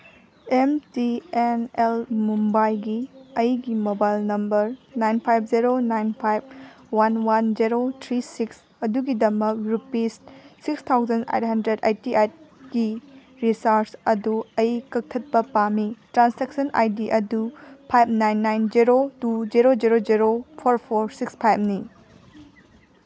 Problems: none marked